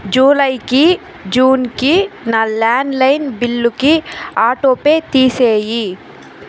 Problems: constant background noise